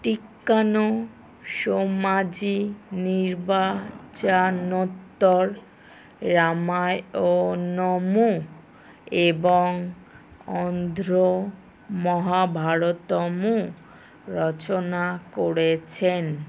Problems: none marked